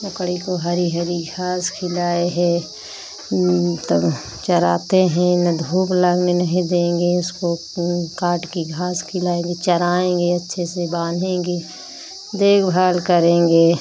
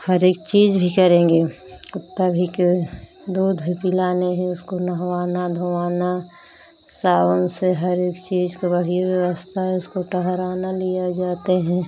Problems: constant background noise, background conversations at intervals